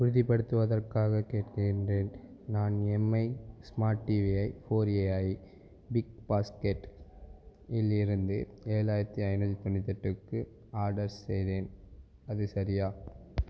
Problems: background sounds at intervals